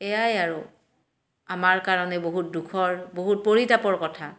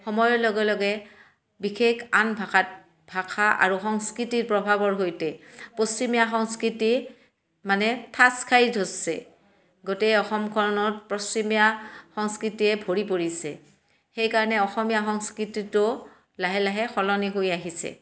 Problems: none marked